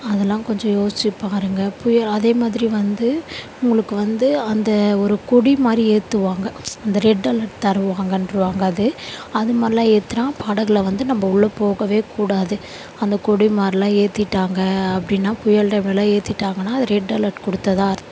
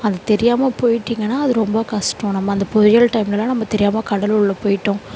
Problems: none marked